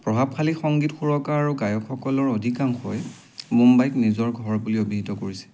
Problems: background sounds at intervals